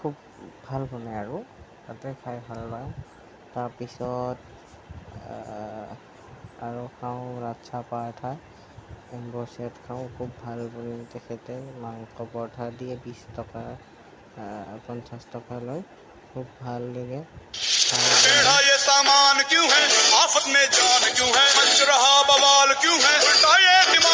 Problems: none marked